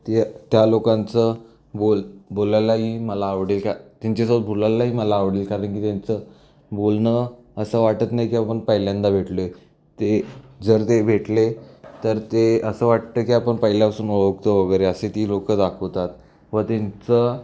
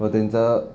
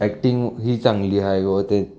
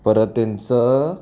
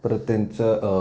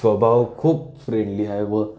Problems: none marked